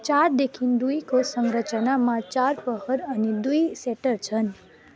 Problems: none marked